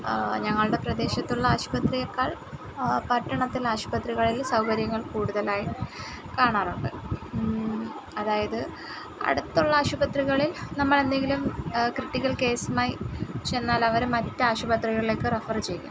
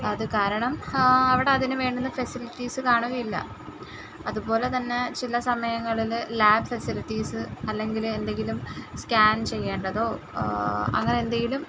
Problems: background sounds at intervals